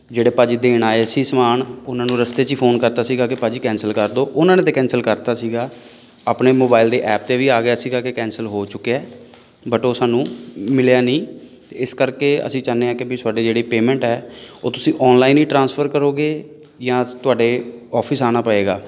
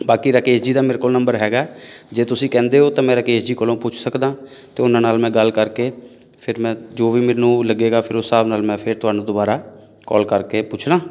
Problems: background sounds at intervals